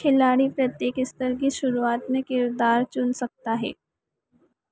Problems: echo